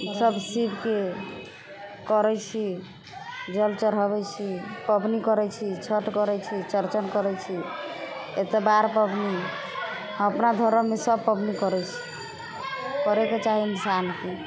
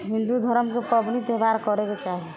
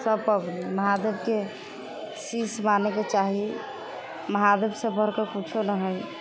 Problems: constant background noise